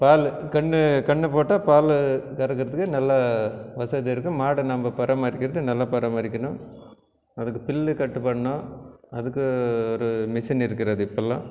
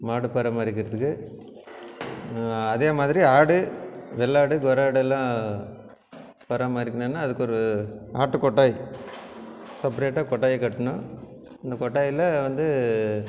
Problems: none marked